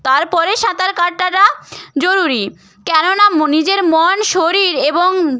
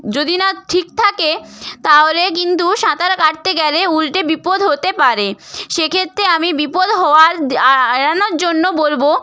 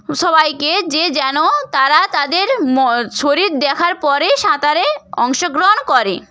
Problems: none marked